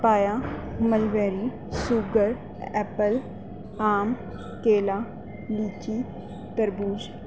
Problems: constant background noise